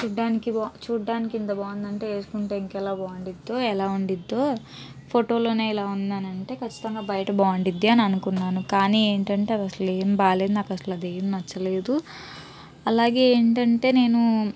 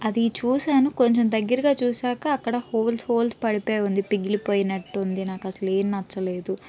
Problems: background conversations at intervals